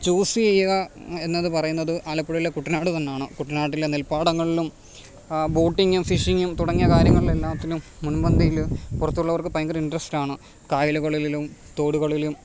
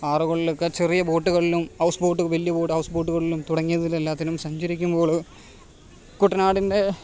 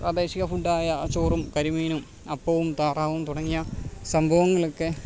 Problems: background sounds at intervals